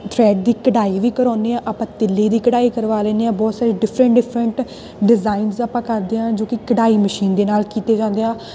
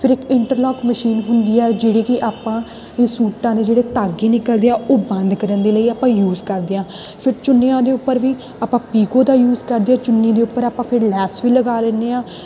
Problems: constant background noise